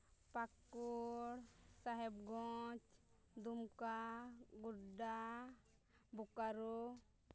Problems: low volume